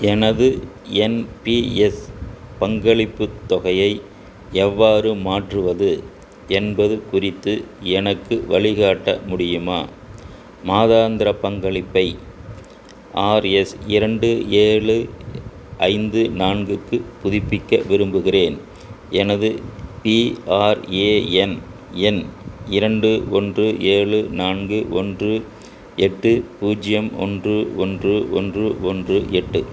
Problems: constant background noise